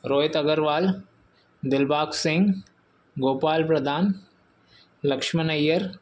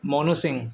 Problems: constant background noise